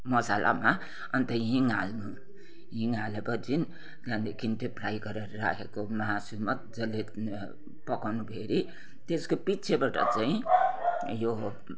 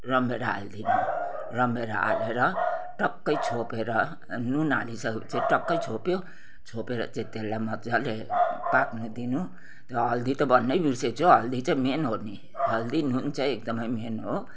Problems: none marked